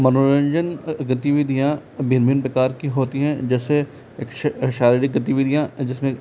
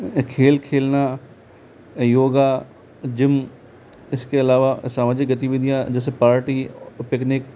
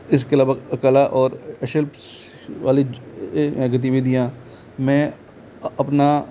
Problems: constant background noise